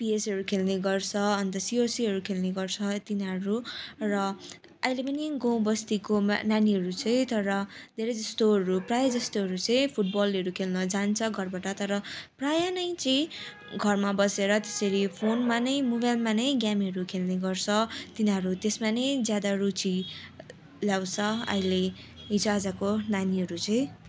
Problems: constant background noise